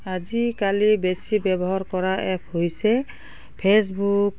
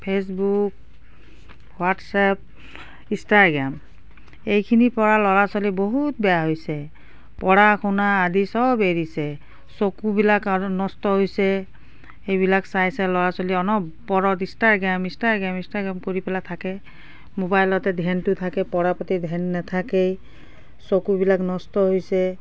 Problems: background sounds at intervals